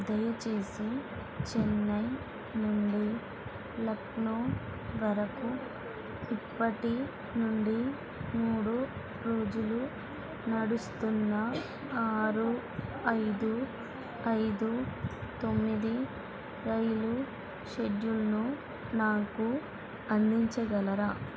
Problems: constant background noise, low volume